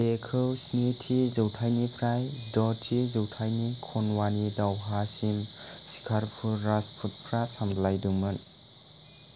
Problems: constant background noise